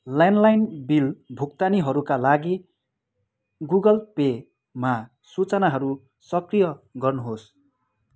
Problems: none marked